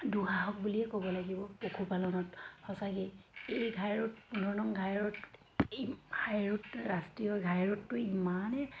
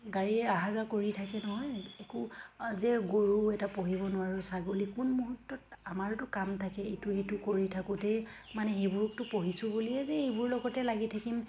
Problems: constant background noise, background conversations at intervals